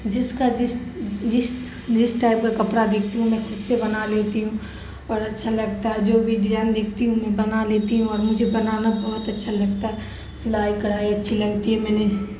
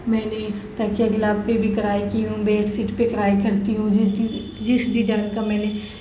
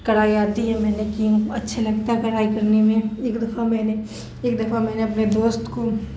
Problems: constant background noise